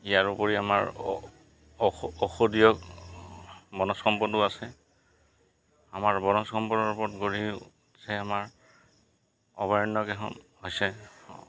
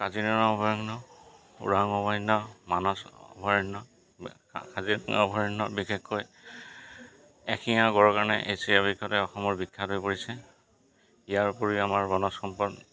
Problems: background sounds at intervals